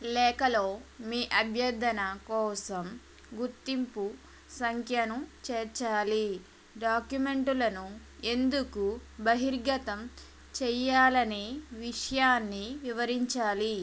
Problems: constant background noise